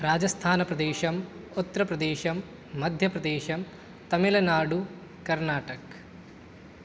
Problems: none marked